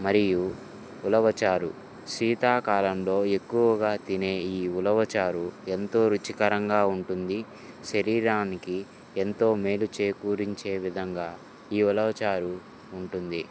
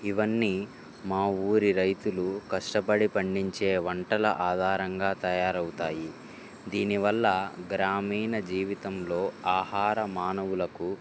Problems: none marked